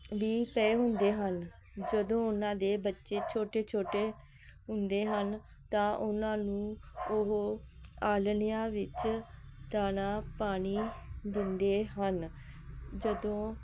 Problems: none marked